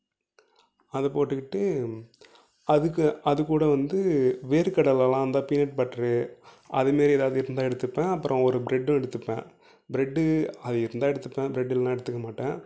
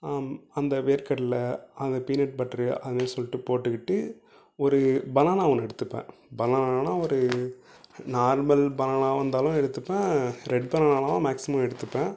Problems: none marked